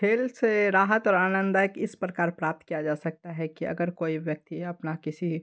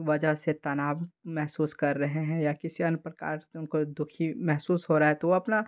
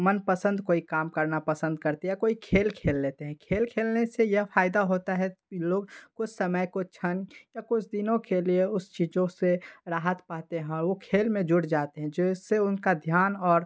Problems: background sounds at intervals